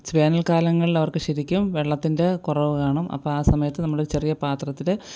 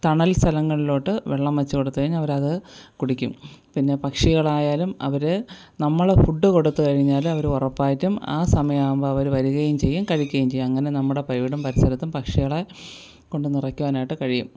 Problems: background sounds at intervals